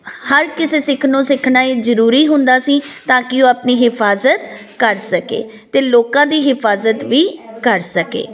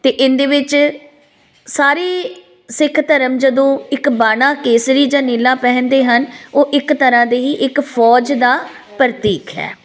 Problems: constant background noise